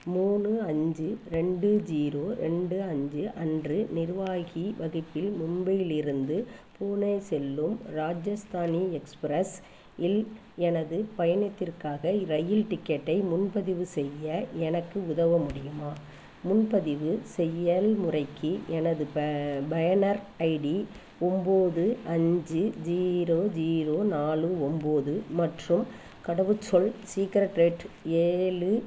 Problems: constant background noise